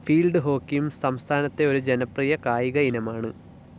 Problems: low volume